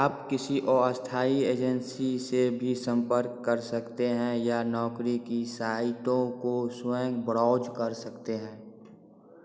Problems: none marked